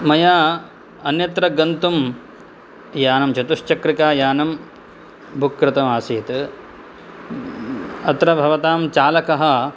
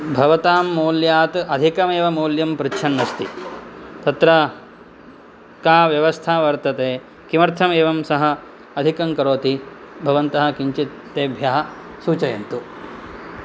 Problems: none marked